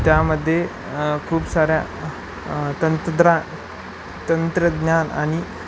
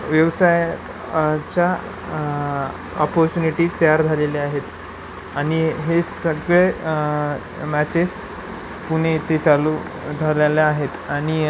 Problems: none marked